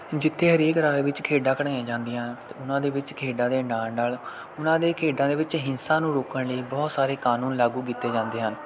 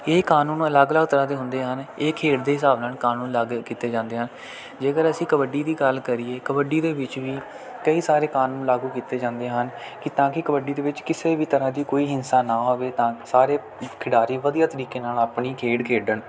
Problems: none marked